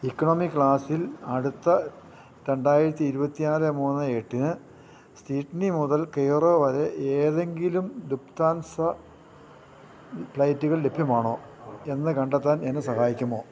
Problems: constant background noise, low volume